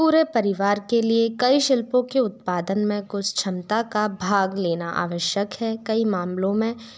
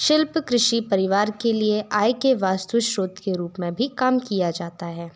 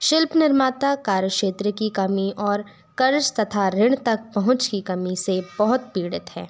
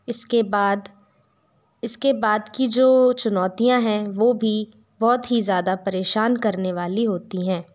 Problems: background sounds at intervals